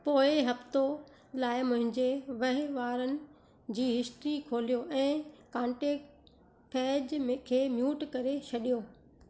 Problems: constant background noise, low volume